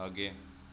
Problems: low volume